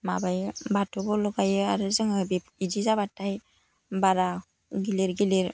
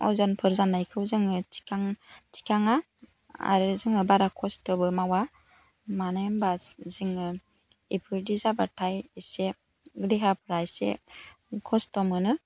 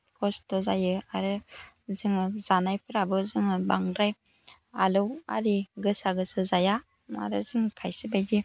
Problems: none marked